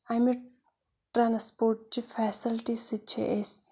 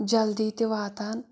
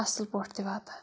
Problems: none marked